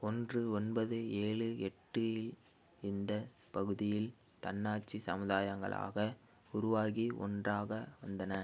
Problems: low volume